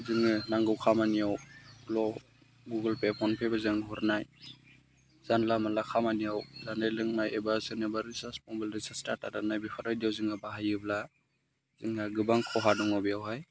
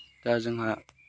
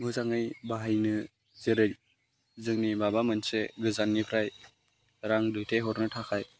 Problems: low volume